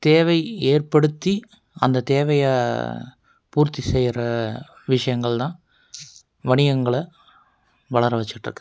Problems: none marked